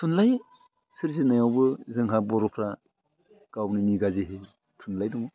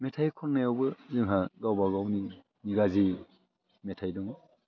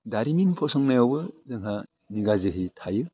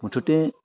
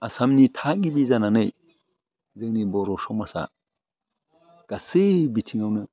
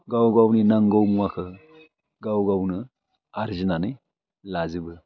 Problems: constant background noise